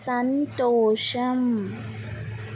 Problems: constant background noise